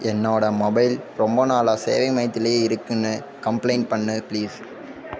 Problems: constant background noise, background conversations at intervals